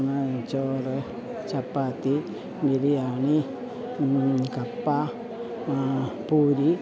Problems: low volume